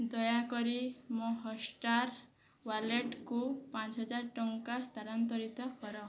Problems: none marked